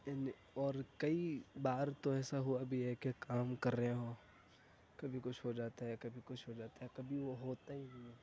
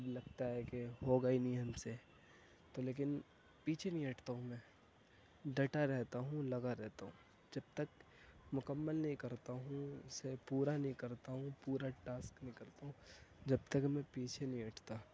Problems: background sounds at intervals, low volume